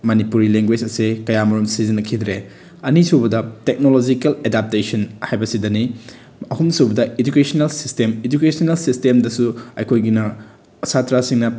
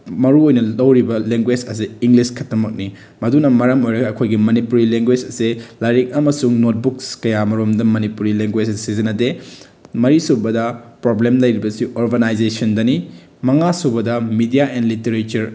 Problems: none marked